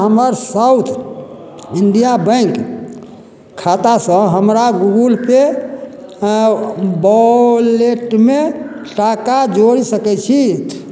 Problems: none marked